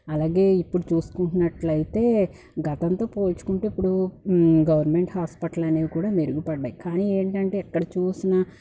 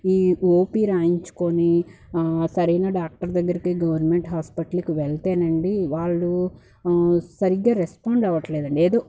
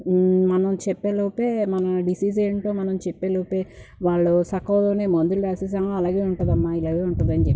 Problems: background sounds at intervals